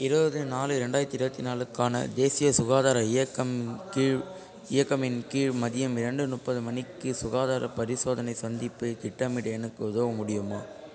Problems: constant background noise, continuous background conversations